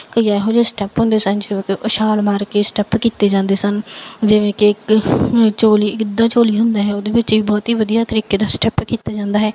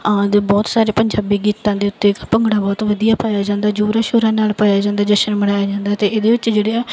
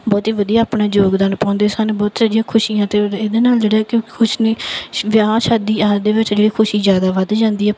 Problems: background sounds at intervals